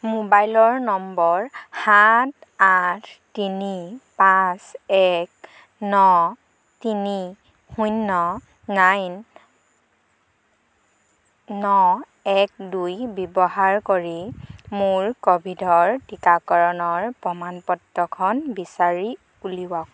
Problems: constant background noise